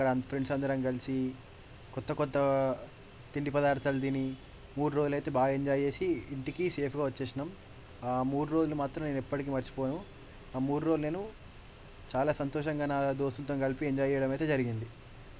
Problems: none marked